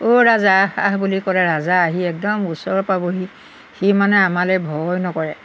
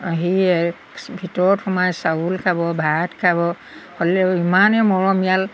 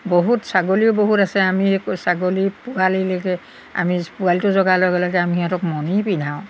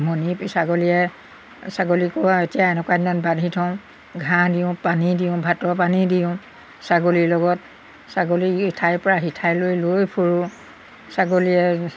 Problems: background sounds at intervals